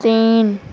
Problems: none marked